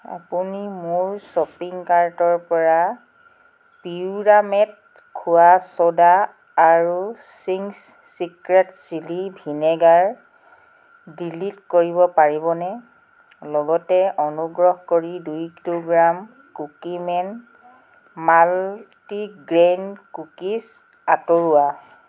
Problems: constant background noise